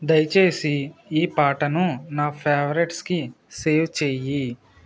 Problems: constant background noise